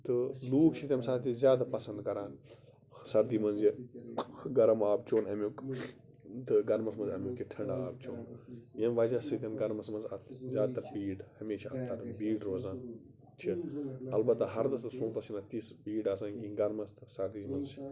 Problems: background sounds at intervals, background conversations at intervals